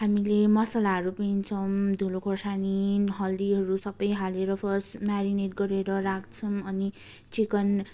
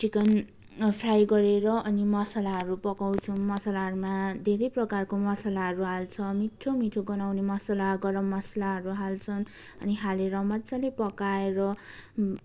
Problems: constant background noise